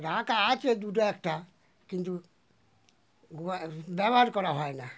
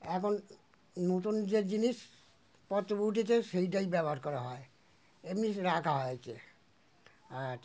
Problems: background sounds at intervals